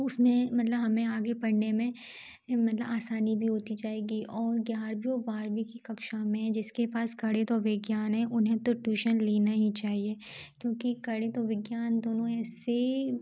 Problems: background sounds at intervals